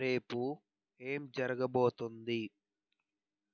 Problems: low volume